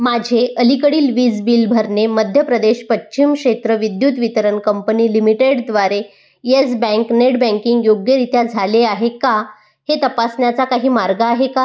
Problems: none marked